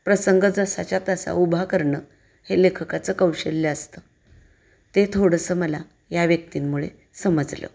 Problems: none marked